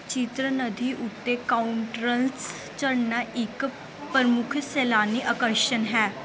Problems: none marked